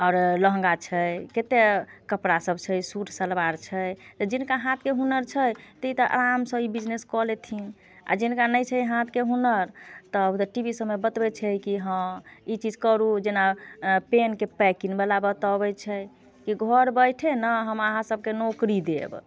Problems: none marked